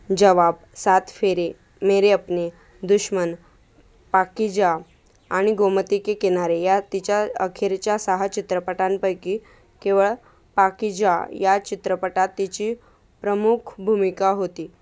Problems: constant background noise